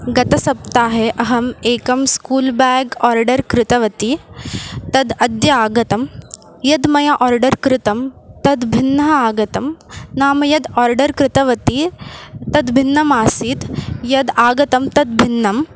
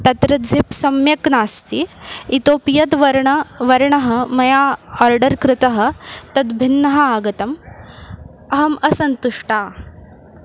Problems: constant background noise